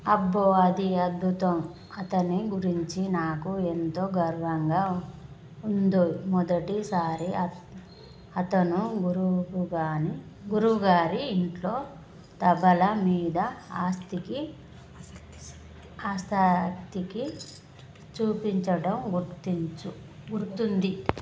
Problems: none marked